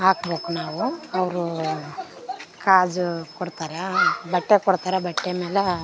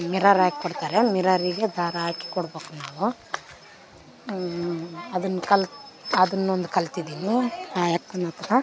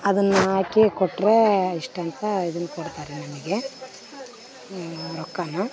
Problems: background sounds at intervals